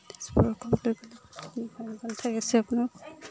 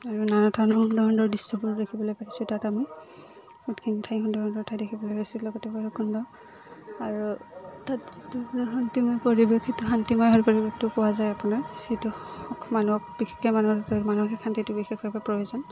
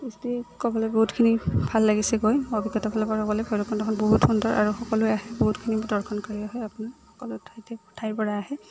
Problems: constant background noise